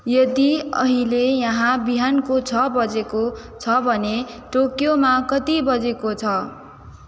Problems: echo